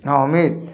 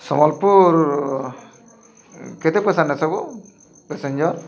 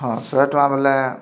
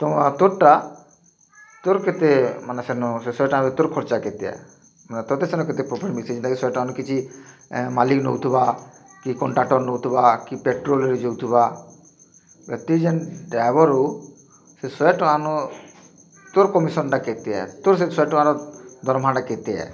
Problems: constant background noise